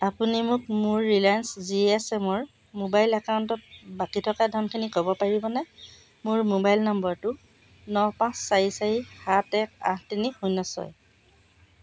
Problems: constant background noise